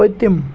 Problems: background sounds at intervals